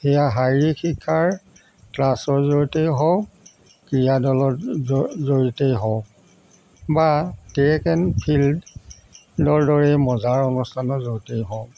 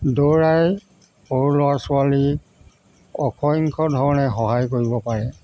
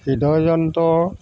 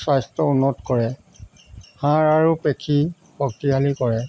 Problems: constant background noise